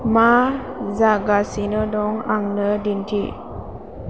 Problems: constant background noise